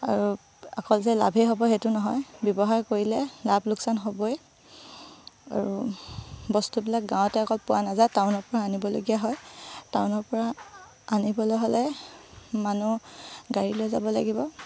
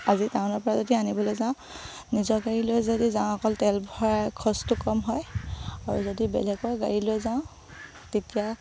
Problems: low volume